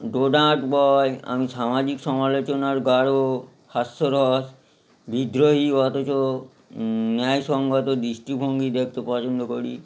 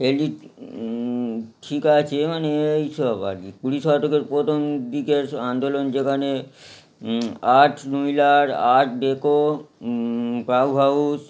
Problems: background sounds at intervals